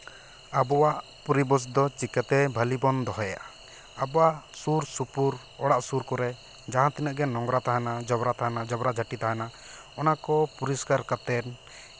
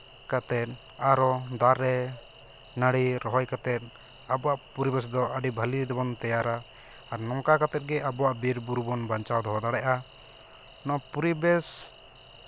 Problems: constant background noise